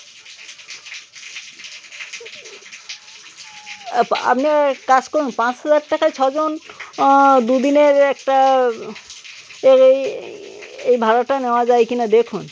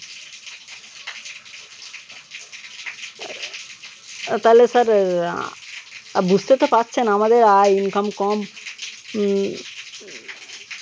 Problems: constant background noise, background conversations at intervals